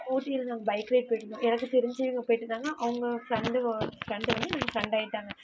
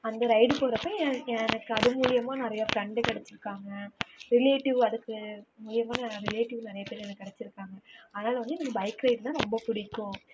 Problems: background sounds at intervals, low volume